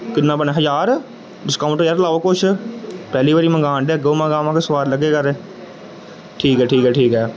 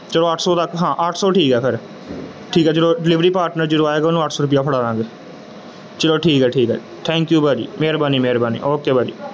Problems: none marked